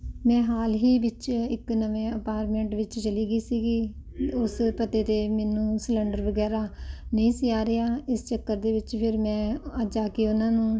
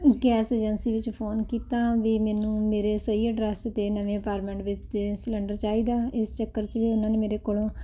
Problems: none marked